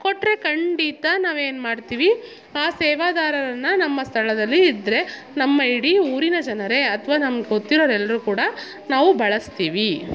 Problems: background sounds at intervals